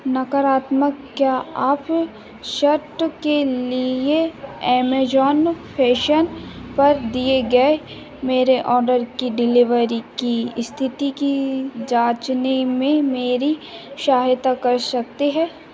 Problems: none marked